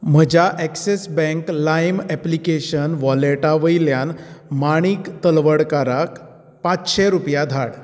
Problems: none marked